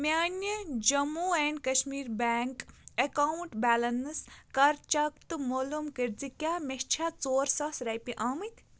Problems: background sounds at intervals